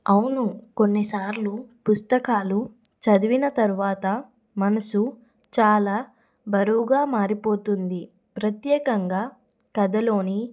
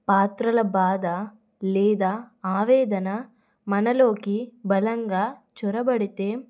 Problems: none marked